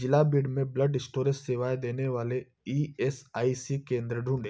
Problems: background sounds at intervals